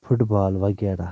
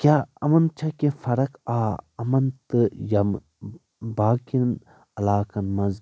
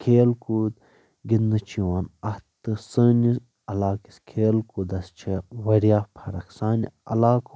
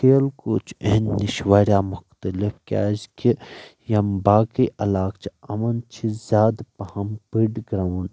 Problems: background sounds at intervals